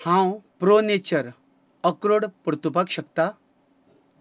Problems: none marked